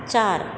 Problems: constant background noise